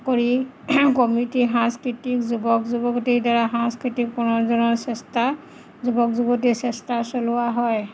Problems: none marked